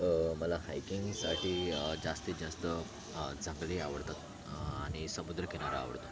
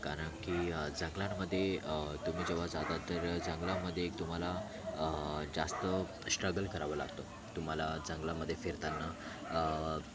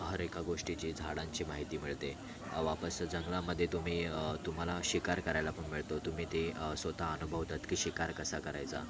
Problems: constant background noise, continuous background conversations